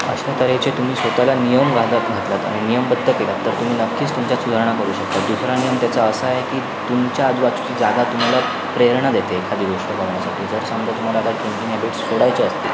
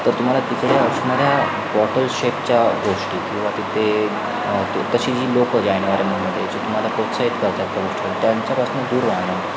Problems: constant background noise, continuous background conversations